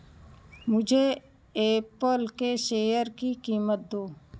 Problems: none marked